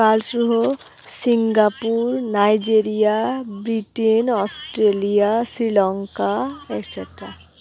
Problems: continuous background conversations